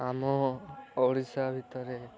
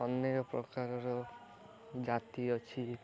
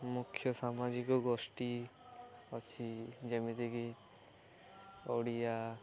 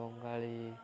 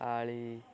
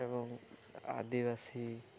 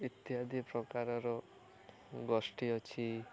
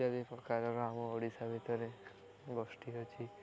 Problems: continuous background conversations